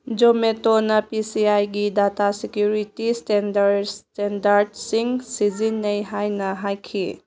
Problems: none marked